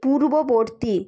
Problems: background conversations at intervals